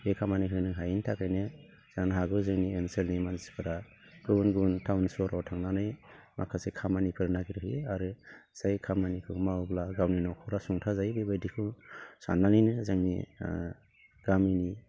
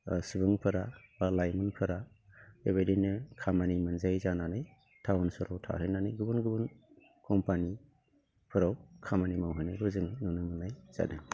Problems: low volume